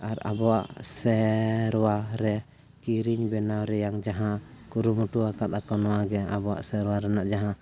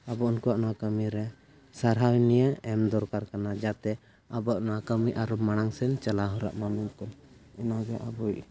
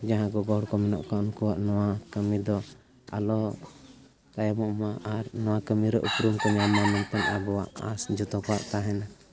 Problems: background sounds at intervals, continuous background conversations